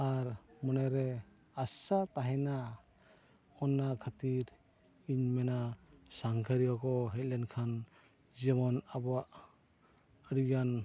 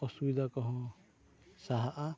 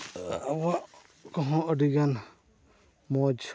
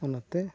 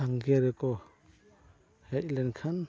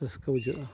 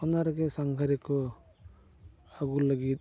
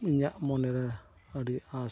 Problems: background sounds at intervals